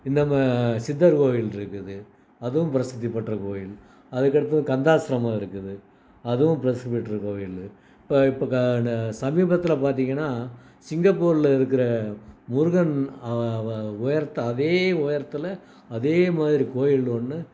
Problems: none marked